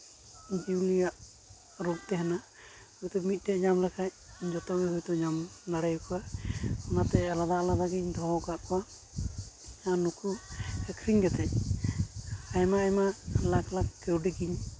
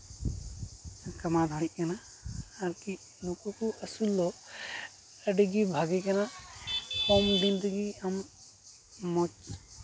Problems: constant background noise, background conversations at intervals